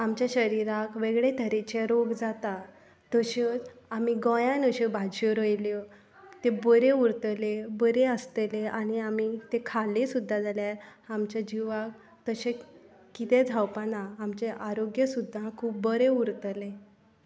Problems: background conversations at intervals